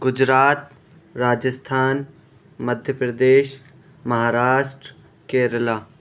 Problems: background sounds at intervals